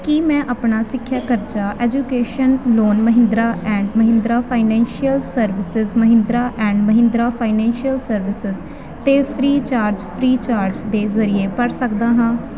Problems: constant background noise